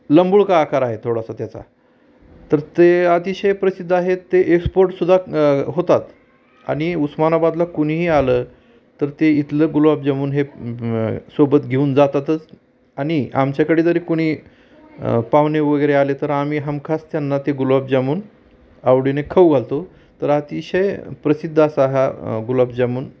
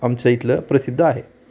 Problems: constant background noise